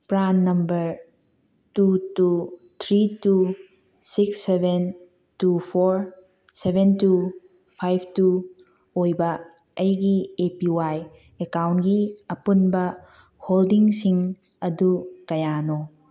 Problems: none marked